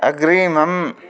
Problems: constant background noise